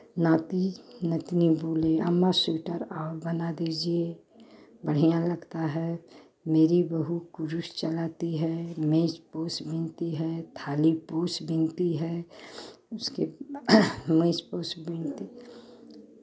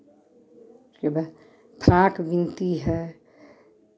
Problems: constant background noise, continuous background conversations